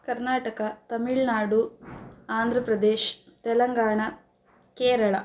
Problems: background sounds at intervals